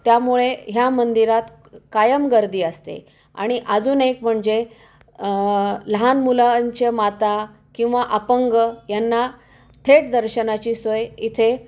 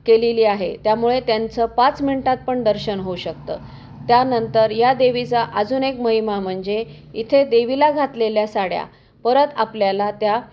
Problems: background sounds at intervals